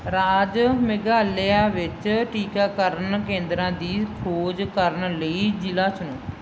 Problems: none marked